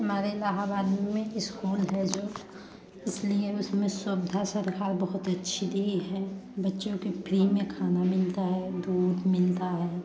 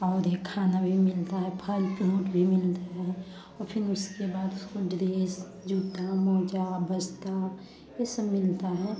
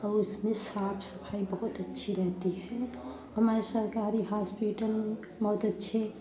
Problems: background sounds at intervals, background conversations at intervals